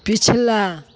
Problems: constant background noise